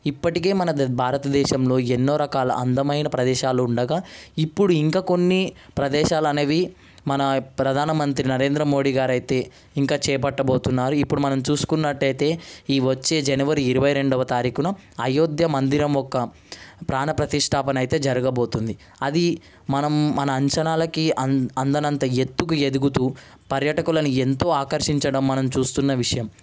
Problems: none marked